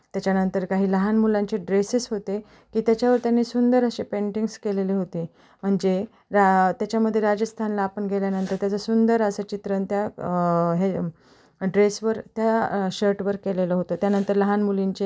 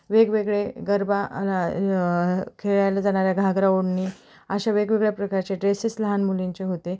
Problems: background sounds at intervals